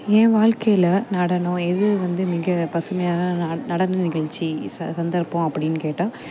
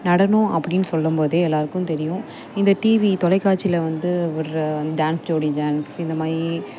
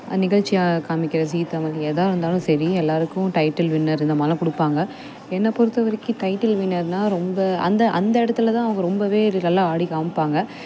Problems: constant background noise